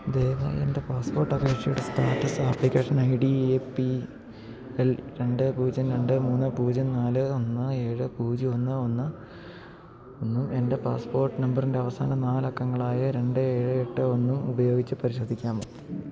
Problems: low volume